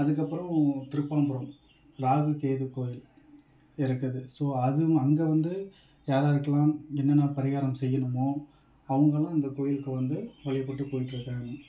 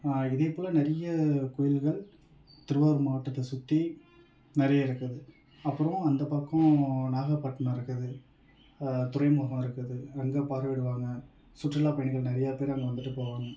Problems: none marked